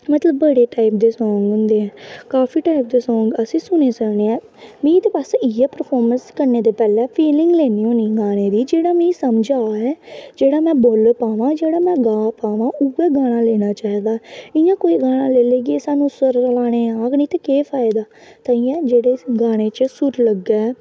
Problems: constant background noise